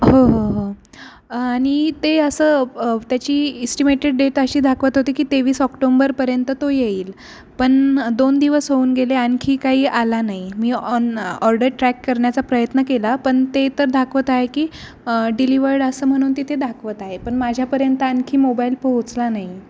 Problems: none marked